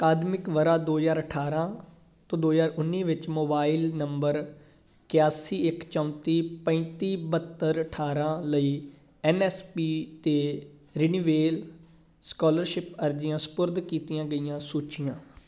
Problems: background sounds at intervals